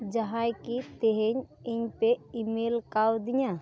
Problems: constant background noise